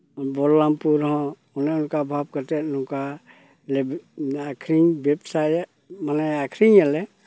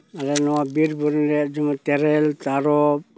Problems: background sounds at intervals